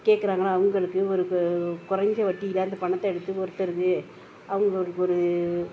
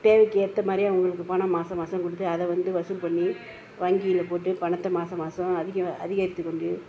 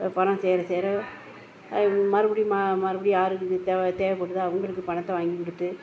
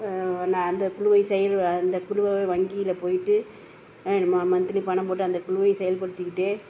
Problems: background sounds at intervals